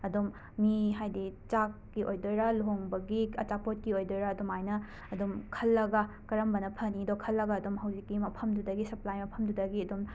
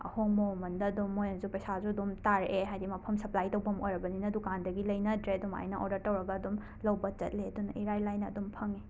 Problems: background sounds at intervals